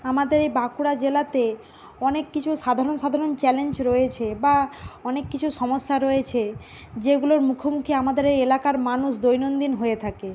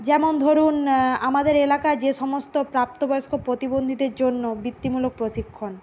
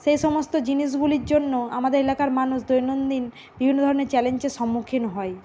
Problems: none marked